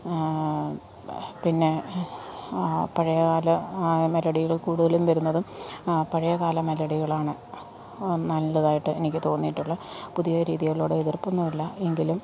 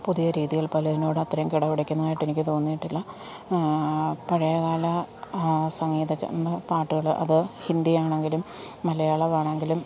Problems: constant background noise